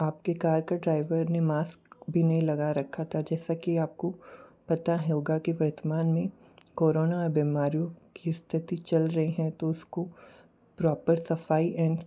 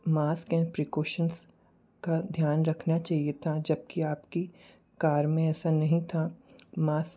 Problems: low volume